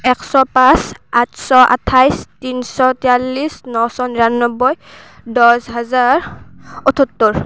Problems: constant background noise